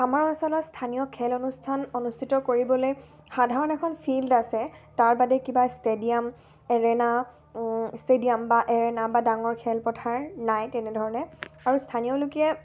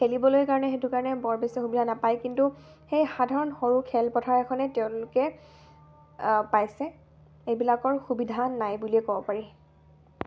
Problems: constant background noise